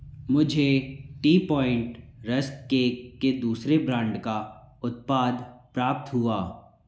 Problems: background sounds at intervals, echo